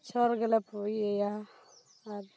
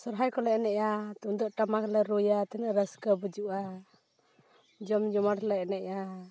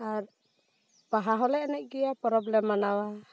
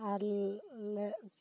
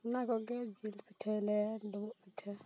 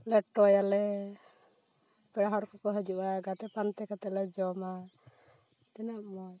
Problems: constant background noise